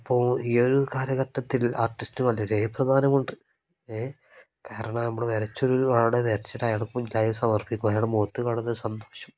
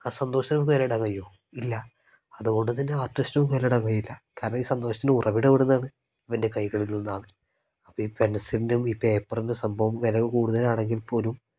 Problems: none marked